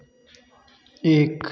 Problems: background sounds at intervals